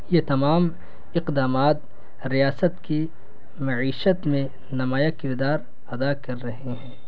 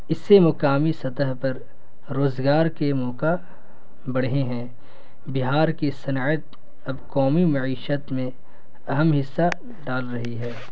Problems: constant background noise